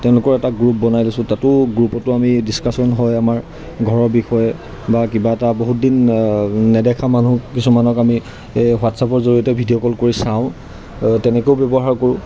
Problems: none marked